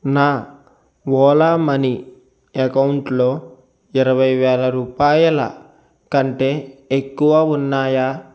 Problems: constant background noise